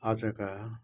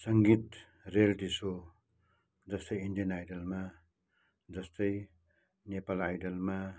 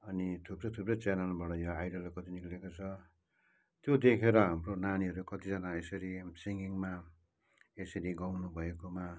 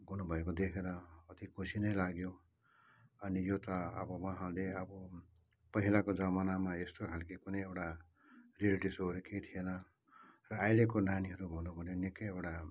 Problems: none marked